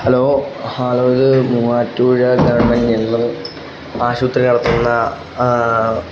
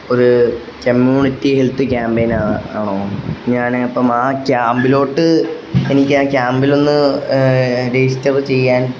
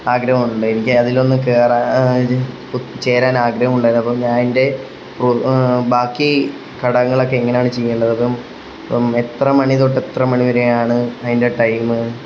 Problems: constant background noise